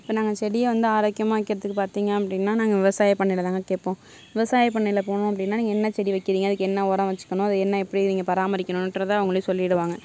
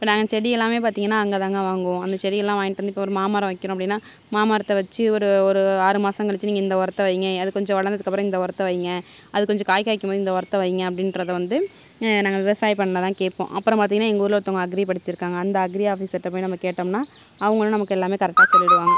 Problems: none marked